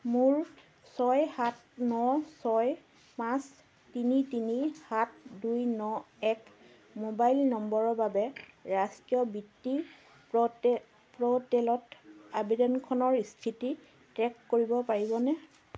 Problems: constant background noise